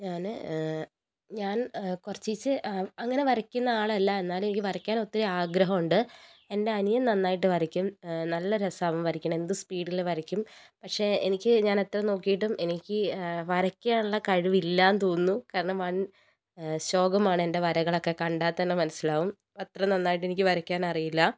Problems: none marked